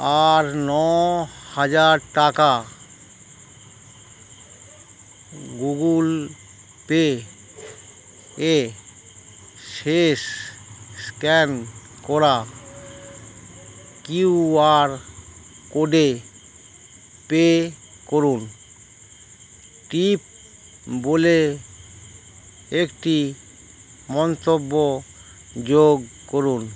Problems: none marked